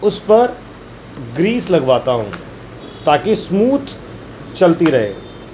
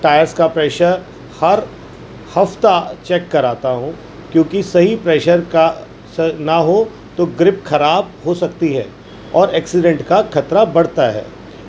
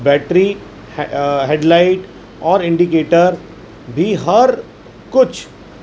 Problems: constant background noise